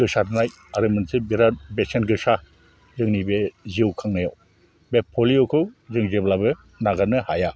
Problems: none marked